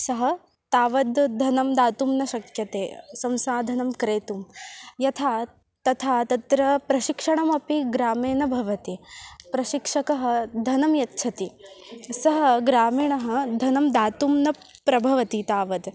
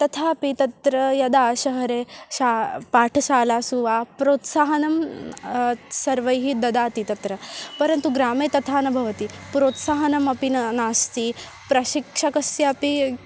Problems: constant background noise, continuous background conversations